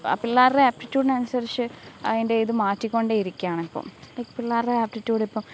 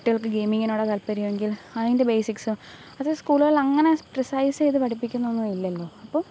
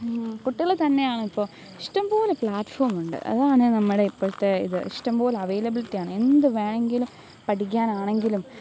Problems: background sounds at intervals, low volume